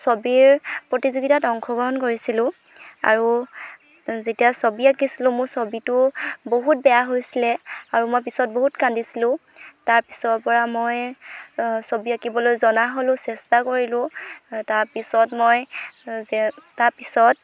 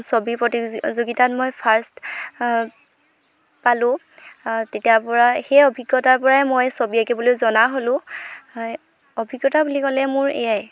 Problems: constant background noise